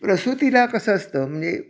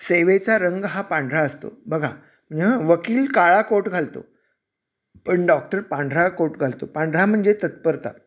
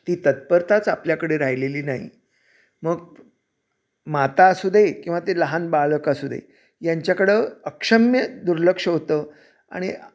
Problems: none marked